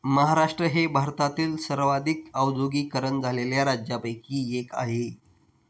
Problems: none marked